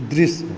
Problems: constant background noise